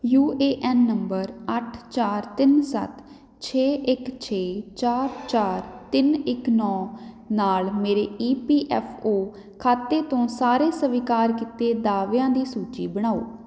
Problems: background sounds at intervals